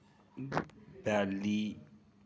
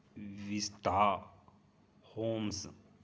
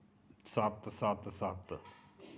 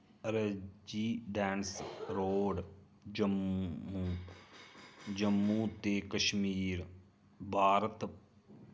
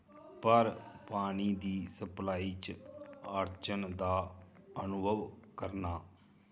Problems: low volume